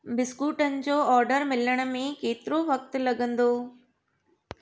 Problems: none marked